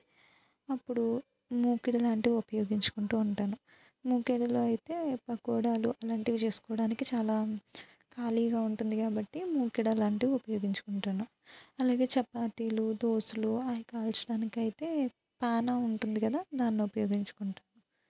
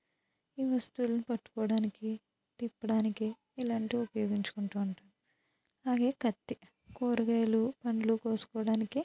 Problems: low volume